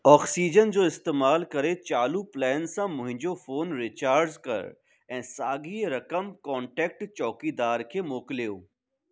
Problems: none marked